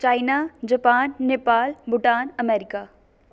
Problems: none marked